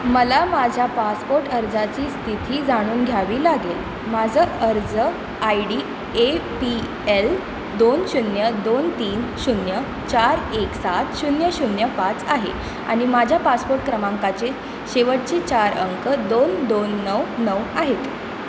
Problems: constant background noise